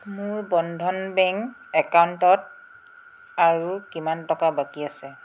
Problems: background sounds at intervals